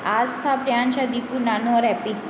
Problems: constant background noise